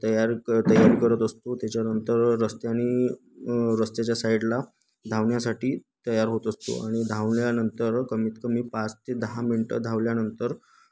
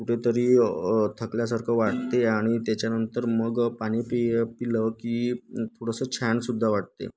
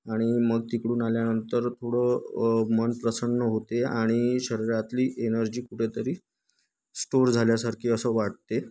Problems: none marked